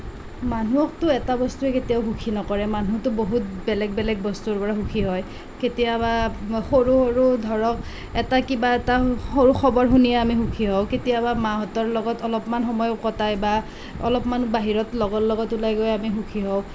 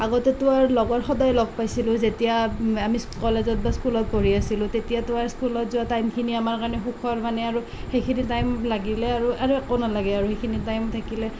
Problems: constant background noise